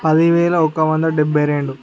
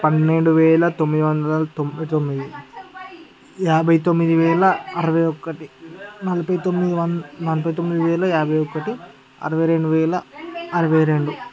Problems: continuous background conversations